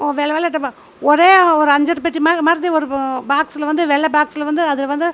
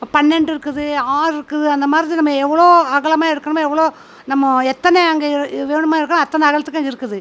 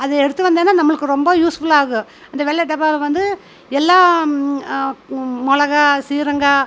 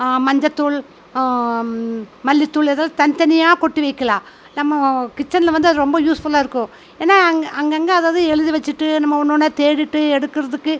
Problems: constant background noise